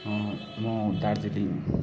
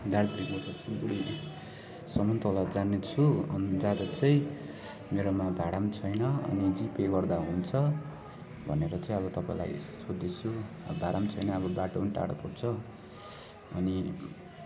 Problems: constant background noise, continuous background conversations